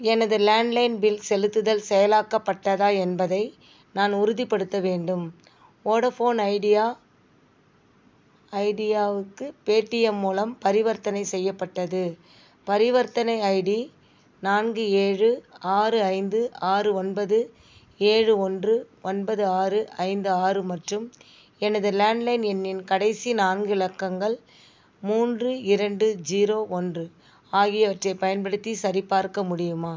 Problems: background sounds at intervals